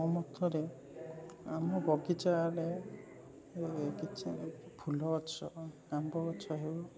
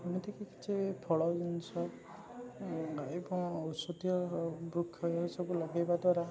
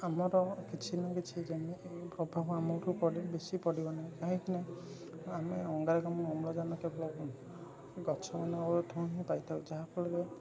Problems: constant background noise, continuous background conversations